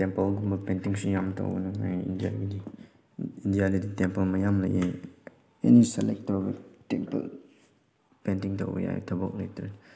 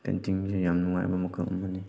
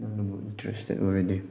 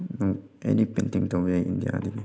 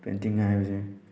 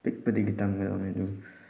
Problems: background sounds at intervals